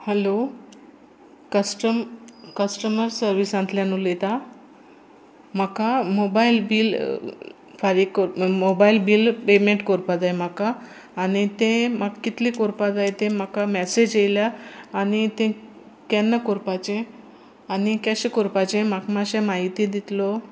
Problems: constant background noise